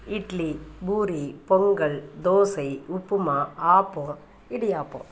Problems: background sounds at intervals